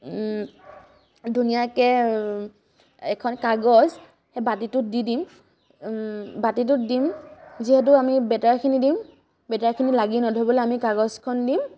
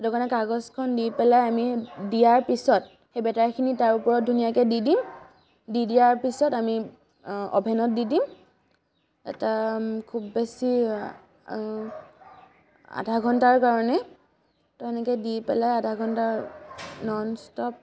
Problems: none marked